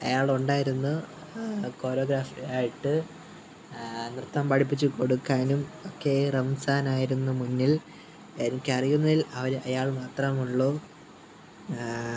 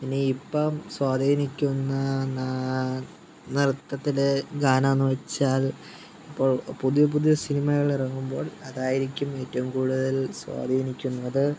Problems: background sounds at intervals